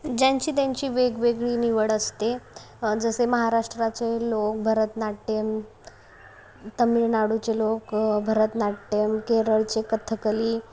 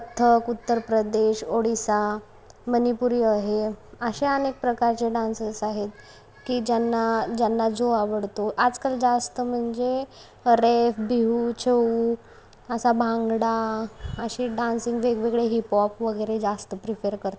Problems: constant background noise